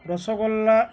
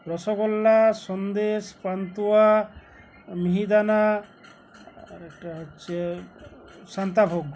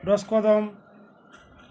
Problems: none marked